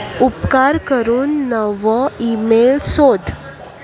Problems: none marked